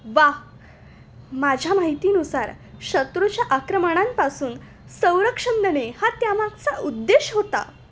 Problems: constant background noise